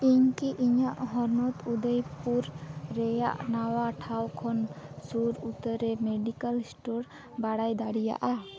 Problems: constant background noise